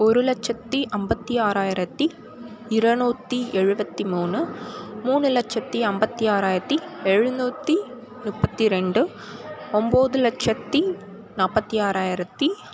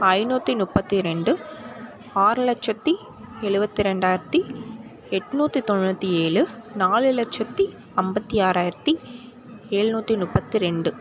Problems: constant background noise